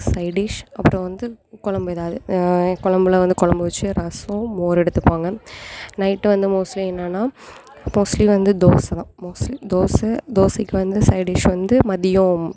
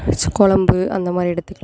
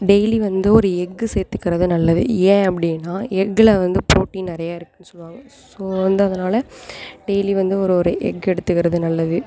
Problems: constant background noise